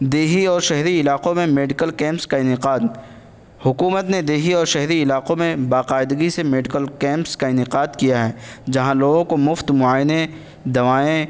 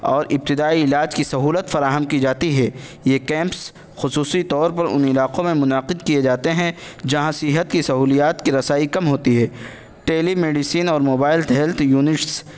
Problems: constant background noise